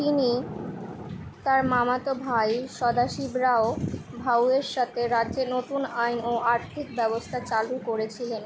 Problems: continuous background conversations